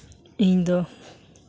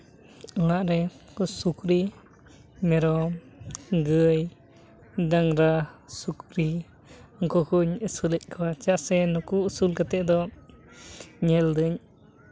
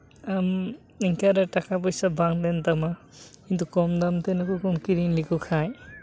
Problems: none marked